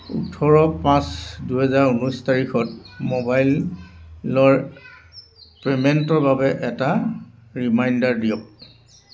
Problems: constant background noise